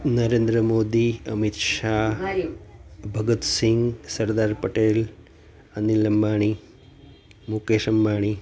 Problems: none marked